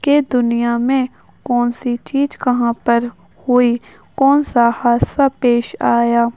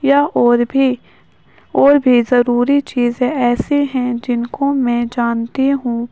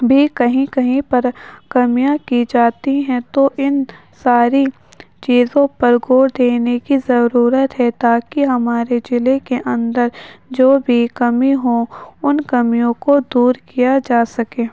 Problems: constant background noise